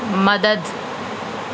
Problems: constant background noise